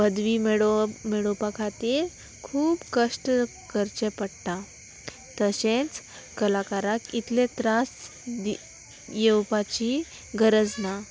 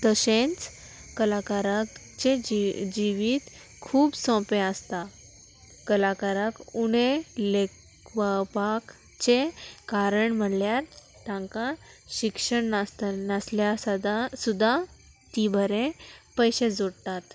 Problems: constant background noise, background conversations at intervals